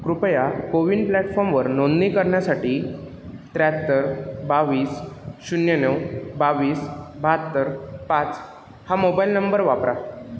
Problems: none marked